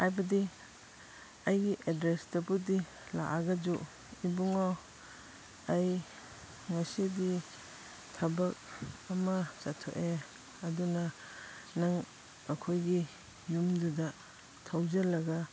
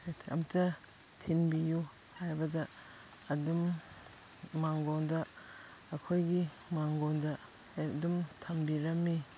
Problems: background sounds at intervals